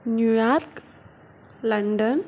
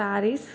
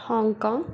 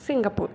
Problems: background sounds at intervals